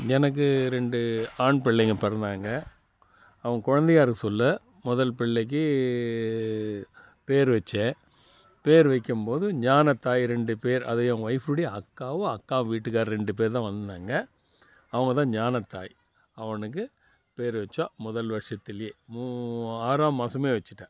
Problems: background sounds at intervals